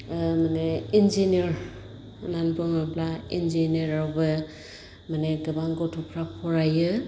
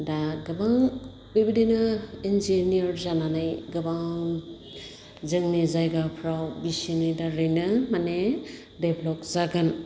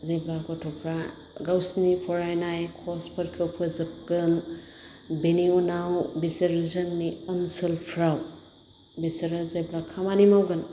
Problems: constant background noise